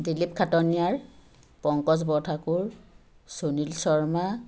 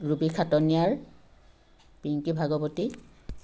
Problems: none marked